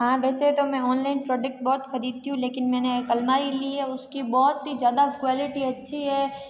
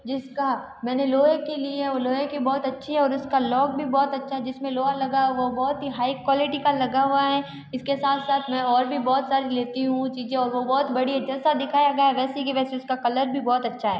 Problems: background sounds at intervals